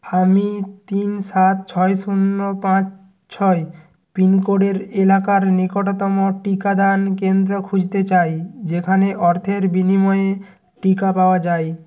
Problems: none marked